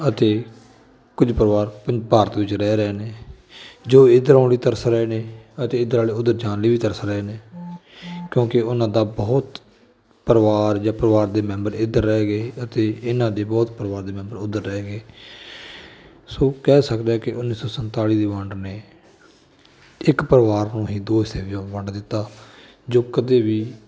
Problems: background sounds at intervals, continuous background conversations